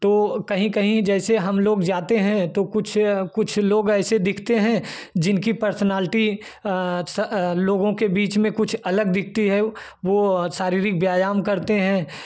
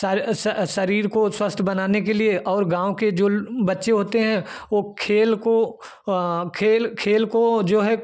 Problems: none marked